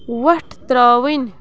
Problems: background sounds at intervals